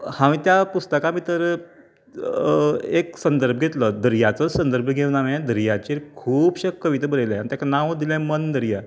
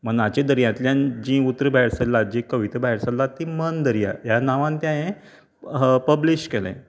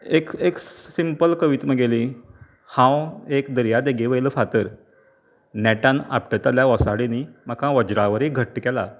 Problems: none marked